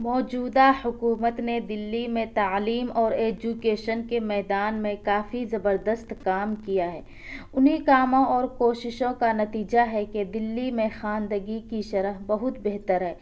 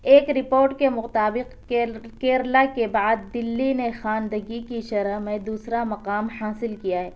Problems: none marked